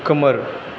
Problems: constant background noise